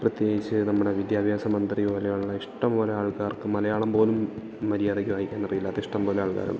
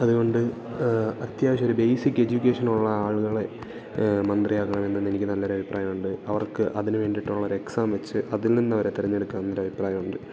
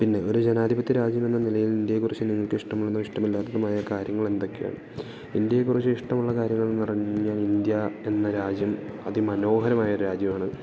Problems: none marked